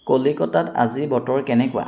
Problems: none marked